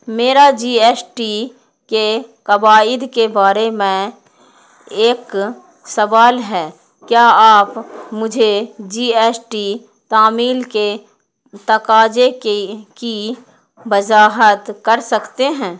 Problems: none marked